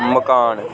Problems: constant background noise